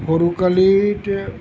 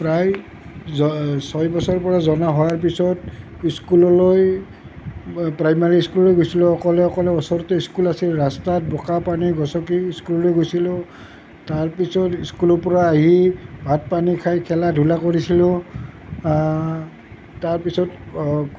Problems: none marked